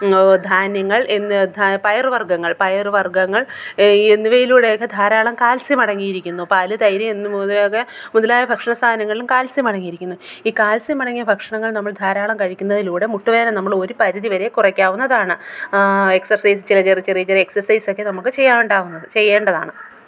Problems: background sounds at intervals